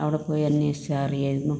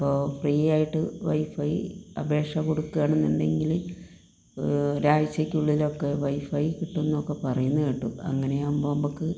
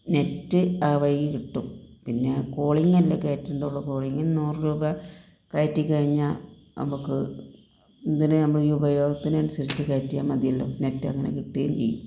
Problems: none marked